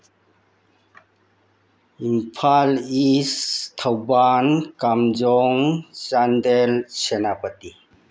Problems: none marked